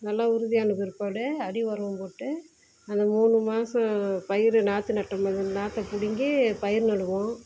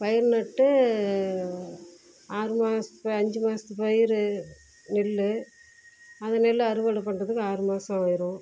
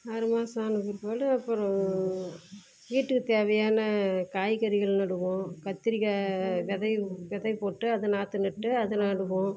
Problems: background sounds at intervals